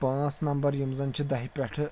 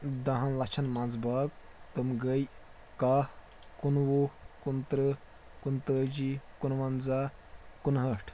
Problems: constant background noise